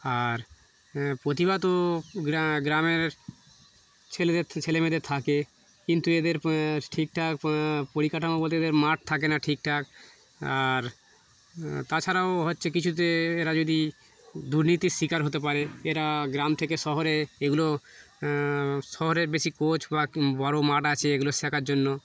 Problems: none marked